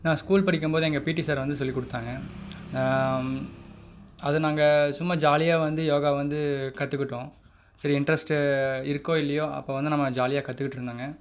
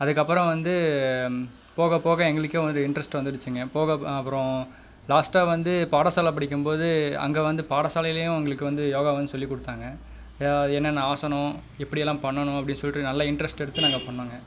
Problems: none marked